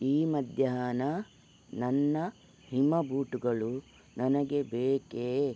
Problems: none marked